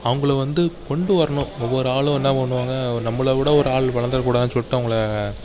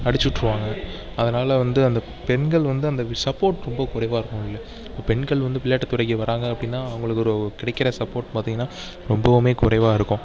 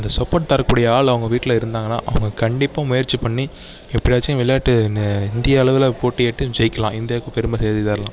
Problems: background sounds at intervals